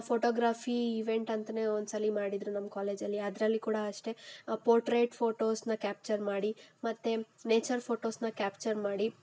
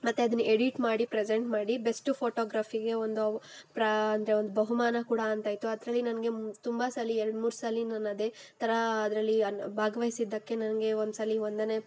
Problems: background sounds at intervals